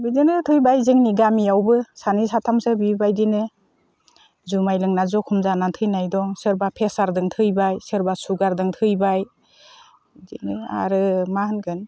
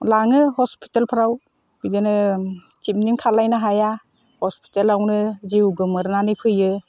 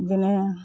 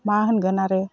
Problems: constant background noise